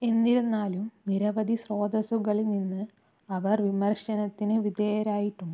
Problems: none marked